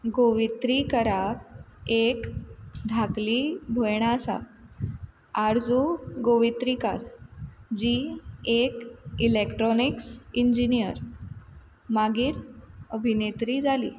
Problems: constant background noise